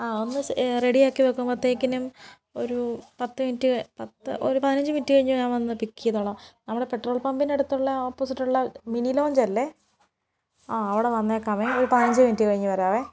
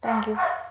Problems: background sounds at intervals